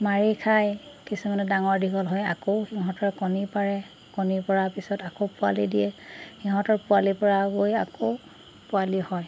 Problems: constant background noise